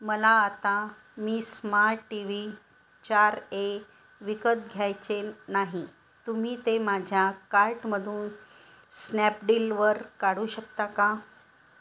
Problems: none marked